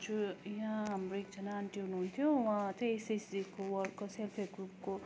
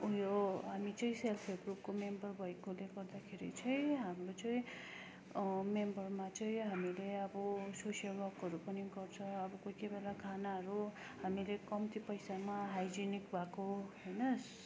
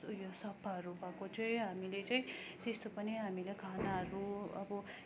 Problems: none marked